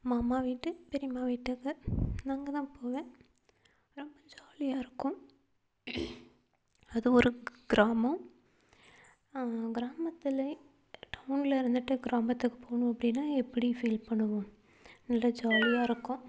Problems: low volume